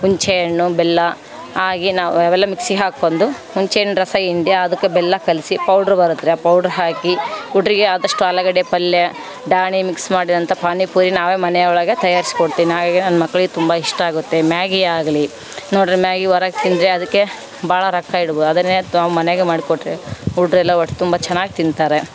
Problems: background sounds at intervals